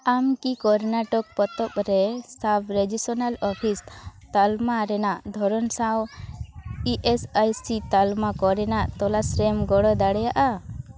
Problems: background sounds at intervals, background conversations at intervals